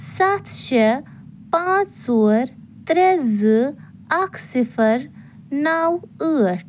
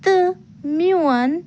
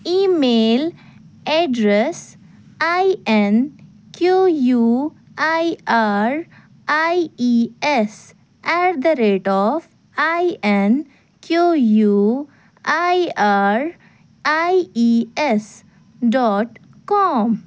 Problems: none marked